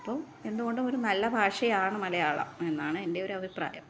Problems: background sounds at intervals